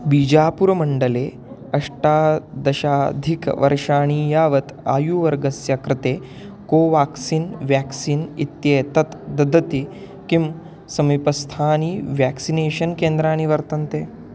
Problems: constant background noise